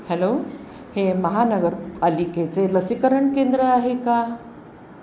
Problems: constant background noise, background conversations at intervals